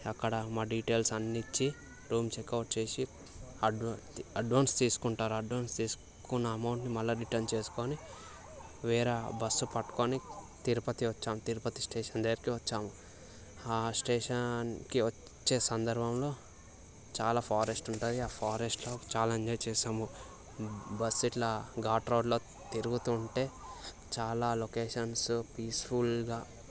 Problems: constant background noise, background conversations at intervals